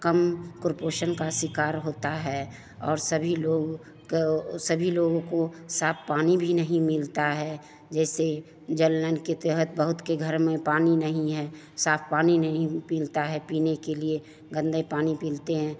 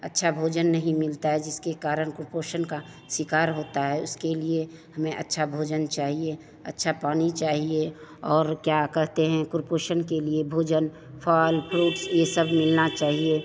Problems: constant background noise, continuous background conversations